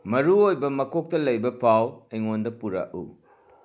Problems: background sounds at intervals